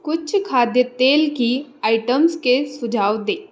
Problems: constant background noise